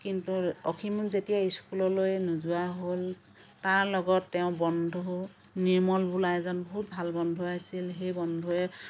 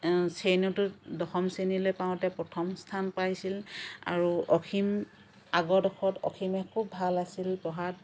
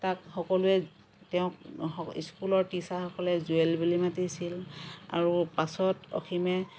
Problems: none marked